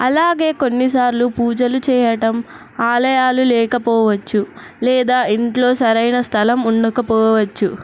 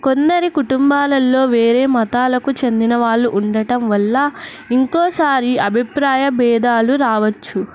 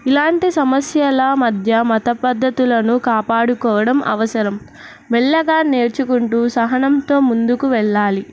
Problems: none marked